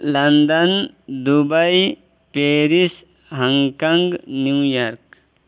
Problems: constant background noise